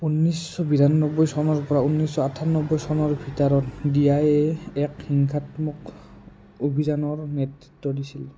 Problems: none marked